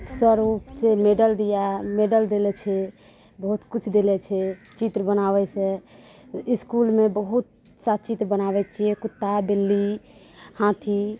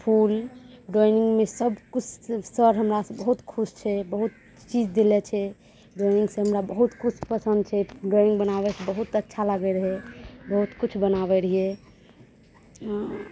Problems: none marked